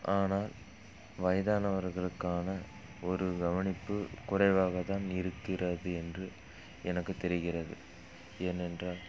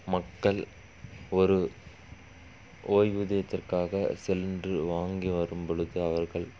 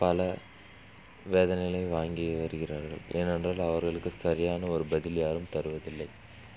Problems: background sounds at intervals